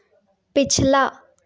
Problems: none marked